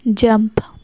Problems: none marked